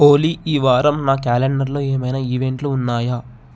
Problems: none marked